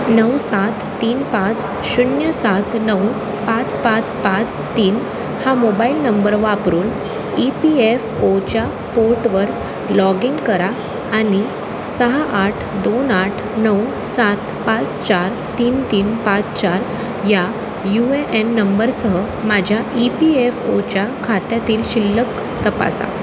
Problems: constant background noise